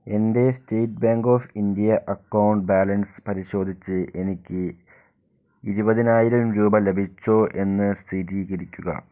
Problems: low volume